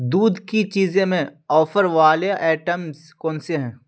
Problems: none marked